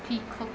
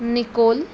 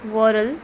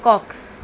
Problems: constant background noise